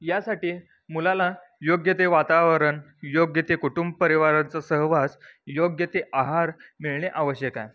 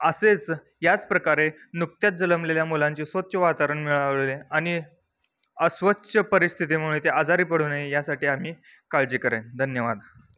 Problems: background sounds at intervals